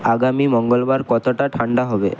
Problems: none marked